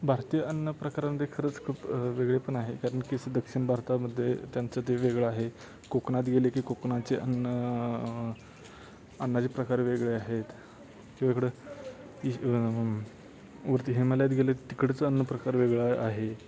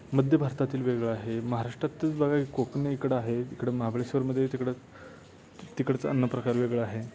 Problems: constant background noise, continuous background conversations